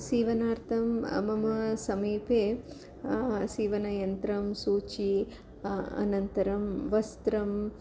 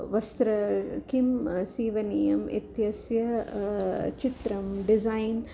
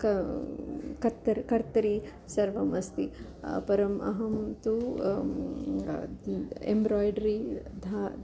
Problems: constant background noise